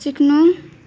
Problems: background sounds at intervals